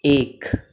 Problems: constant background noise